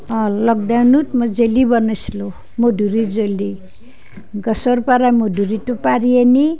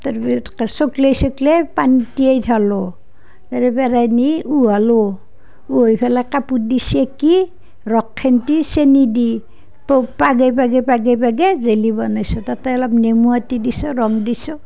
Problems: none marked